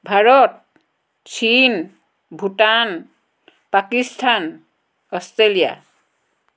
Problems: none marked